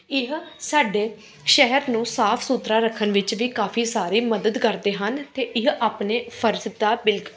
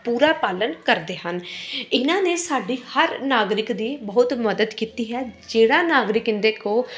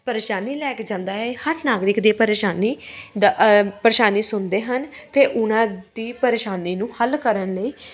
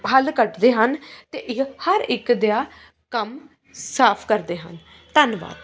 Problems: constant background noise